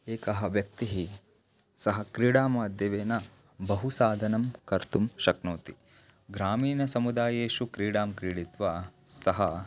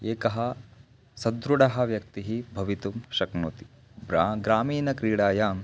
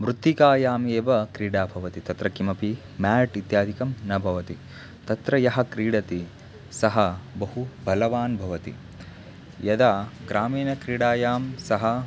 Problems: constant background noise